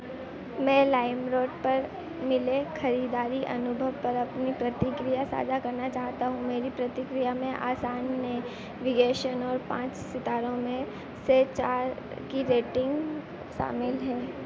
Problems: constant background noise